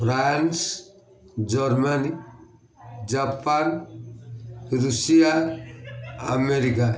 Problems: constant background noise, continuous background conversations